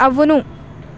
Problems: constant background noise